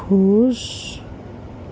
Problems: constant background noise